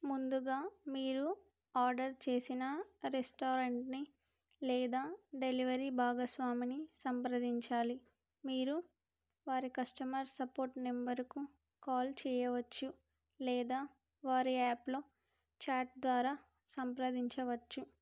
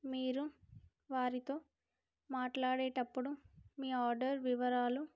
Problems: none marked